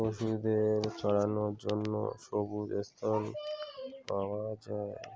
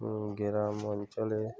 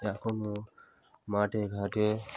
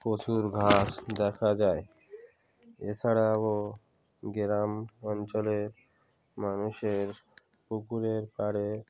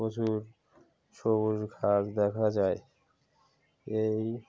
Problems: background sounds at intervals, continuous background conversations